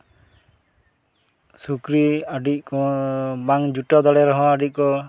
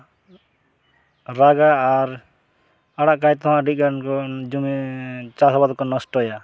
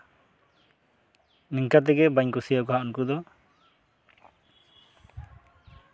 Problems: background sounds at intervals